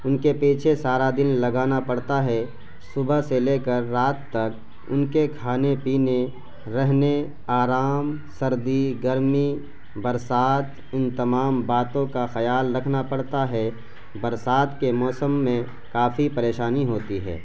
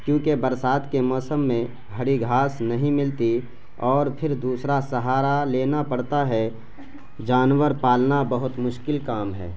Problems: constant background noise